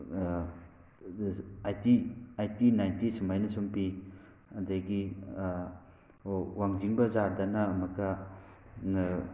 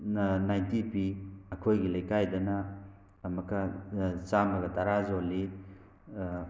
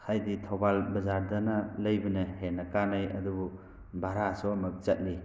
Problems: background sounds at intervals